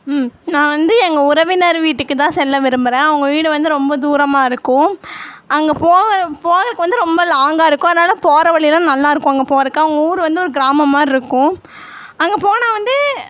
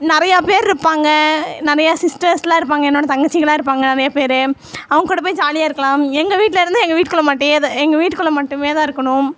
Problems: background conversations at intervals